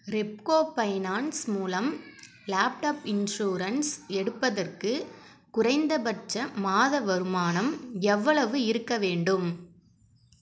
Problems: background sounds at intervals